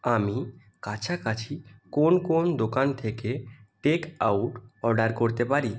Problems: none marked